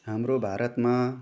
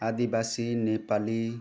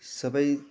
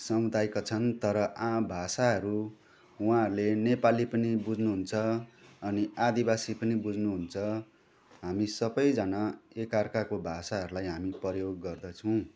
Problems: background conversations at intervals